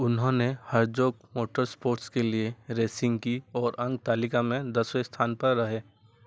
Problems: none marked